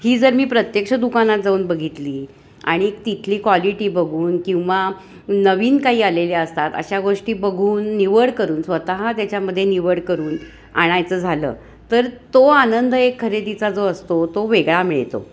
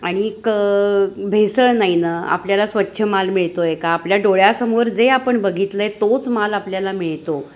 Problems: constant background noise, continuous background conversations